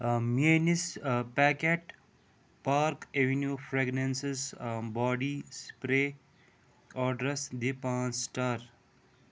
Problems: none marked